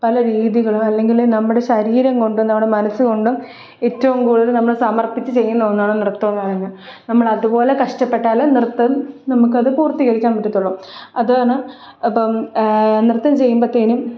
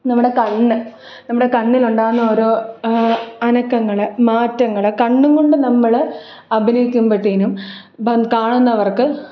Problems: none marked